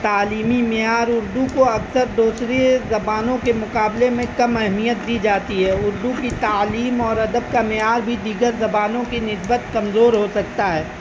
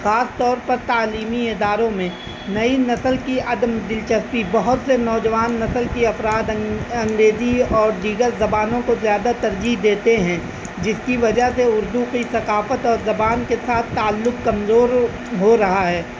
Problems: constant background noise